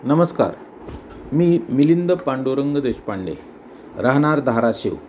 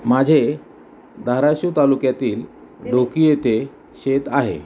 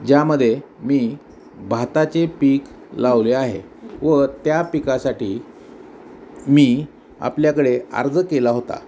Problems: none marked